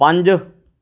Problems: none marked